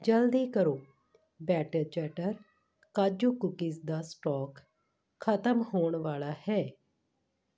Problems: background conversations at intervals